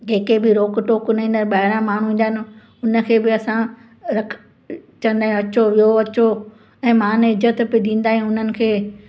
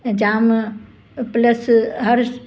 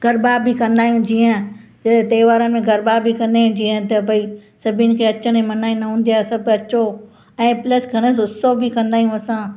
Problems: constant background noise, echo